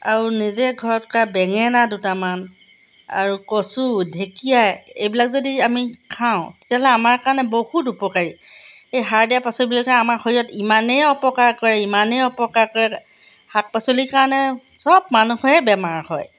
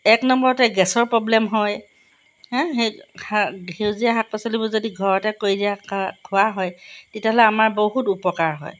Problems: background sounds at intervals